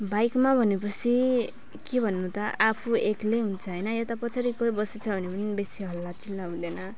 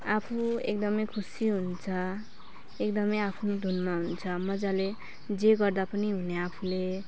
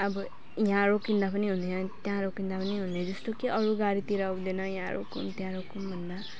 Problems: none marked